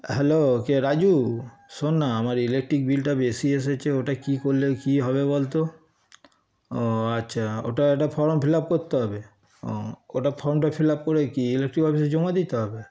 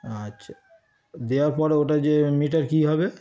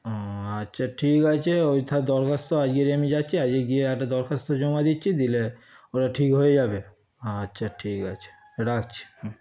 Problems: constant background noise